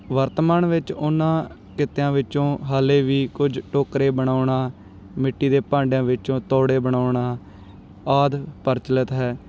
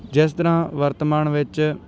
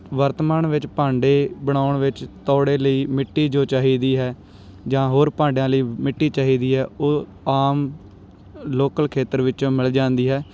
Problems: none marked